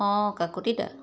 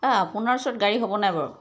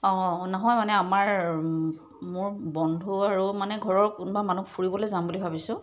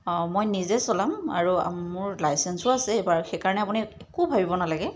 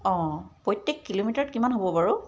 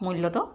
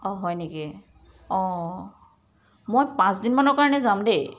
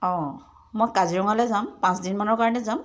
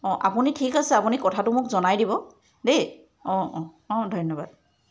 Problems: constant background noise